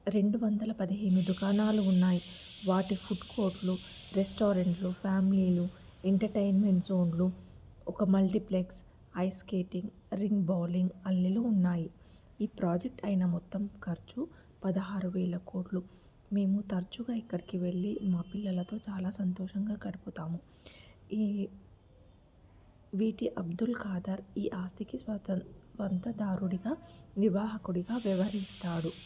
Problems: low volume